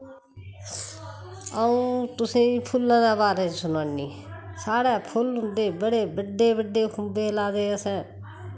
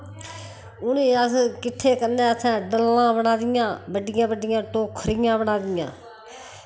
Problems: constant background noise